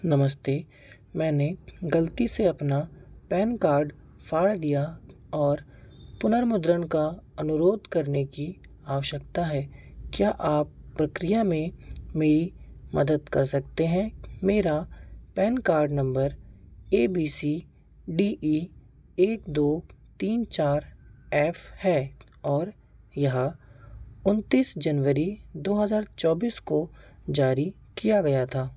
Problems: constant background noise